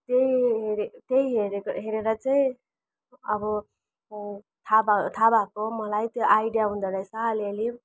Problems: background sounds at intervals